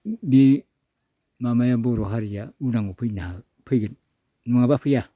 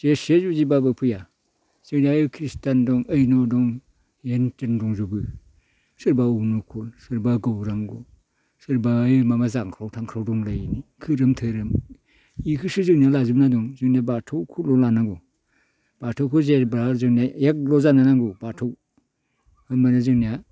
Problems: none marked